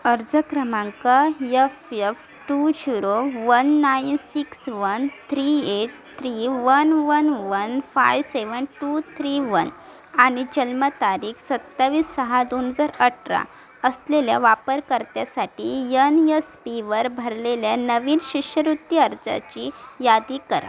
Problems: constant background noise, continuous background conversations